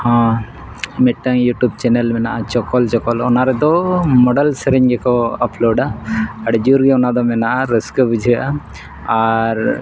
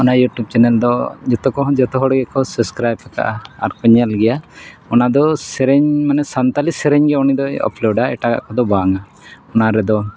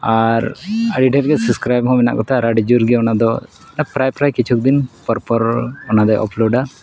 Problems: none marked